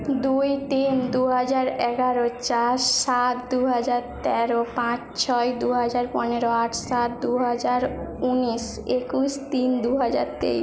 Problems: background conversations at intervals